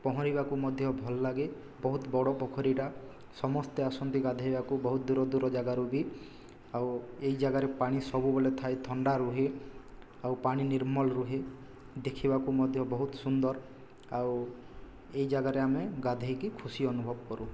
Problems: low volume